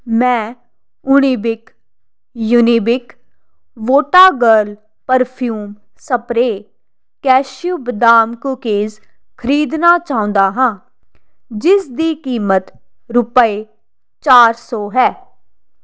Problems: constant background noise